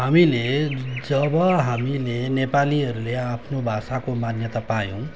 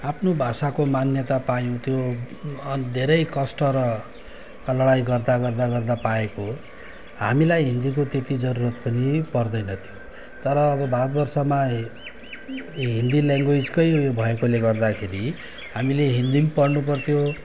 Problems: none marked